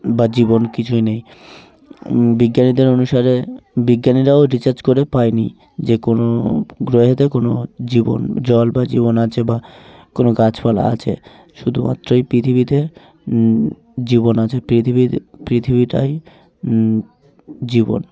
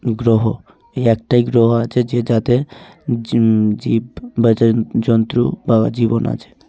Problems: constant background noise, continuous background conversations